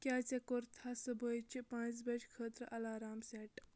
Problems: none marked